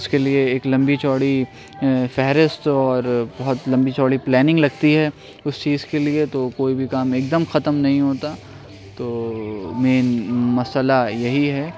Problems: constant background noise, background conversations at intervals